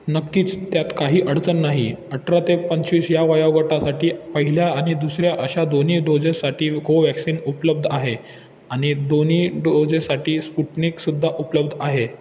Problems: constant background noise, background conversations at intervals